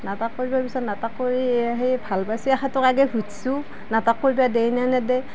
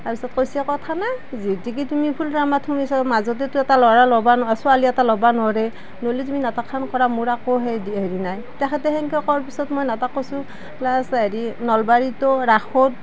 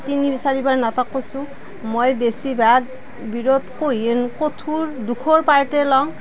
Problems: none marked